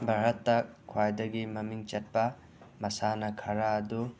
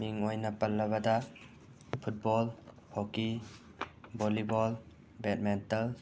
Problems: constant background noise